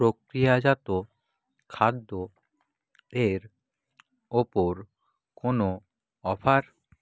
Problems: none marked